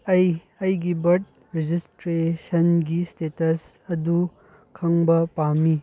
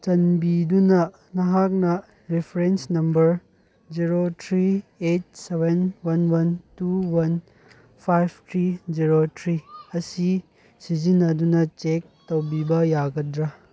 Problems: none marked